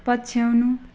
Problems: none marked